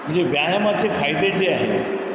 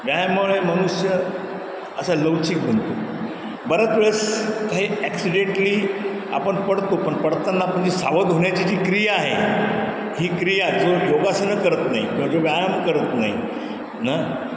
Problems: constant background noise, background conversations at intervals